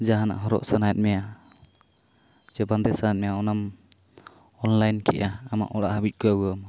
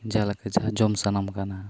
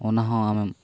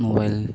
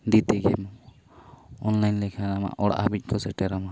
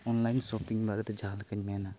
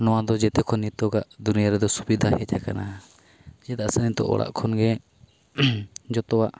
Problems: constant background noise